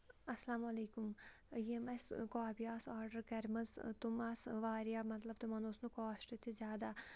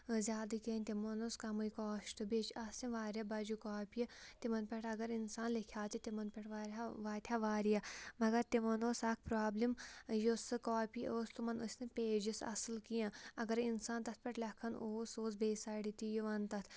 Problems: background sounds at intervals